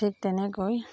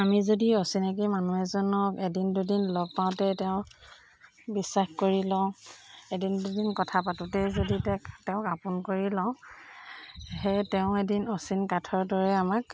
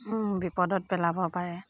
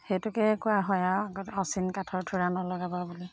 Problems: constant background noise